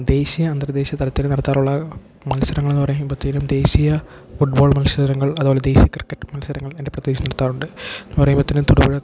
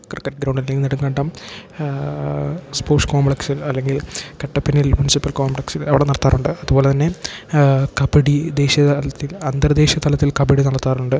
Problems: background sounds at intervals